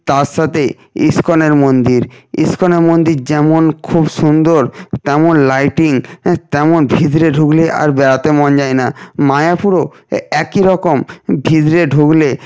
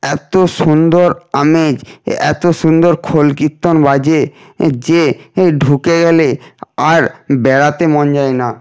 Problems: constant background noise